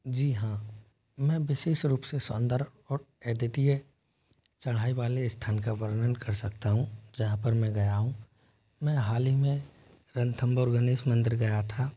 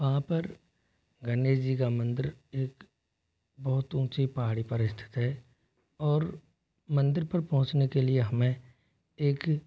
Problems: constant background noise, low volume